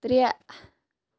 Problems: background sounds at intervals